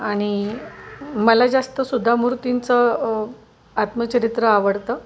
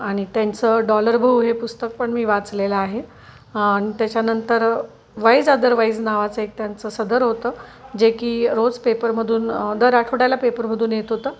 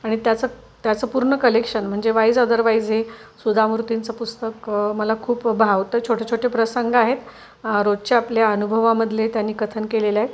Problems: none marked